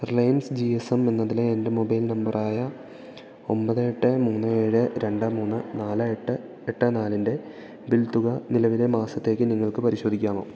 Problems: continuous background conversations